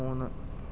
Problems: low volume